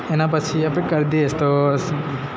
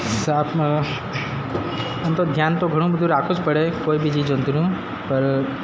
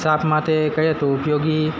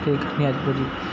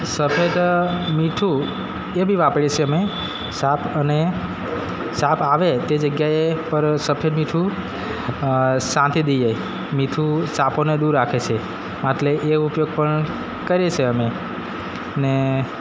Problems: constant background noise